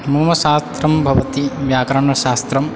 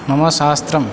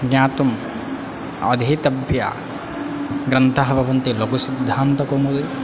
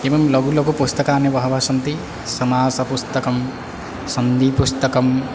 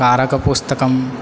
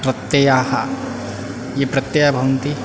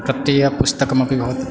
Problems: background conversations at intervals